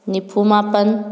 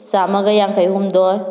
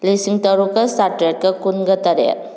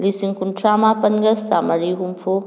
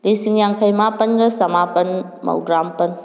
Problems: none marked